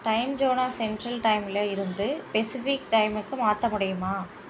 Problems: constant background noise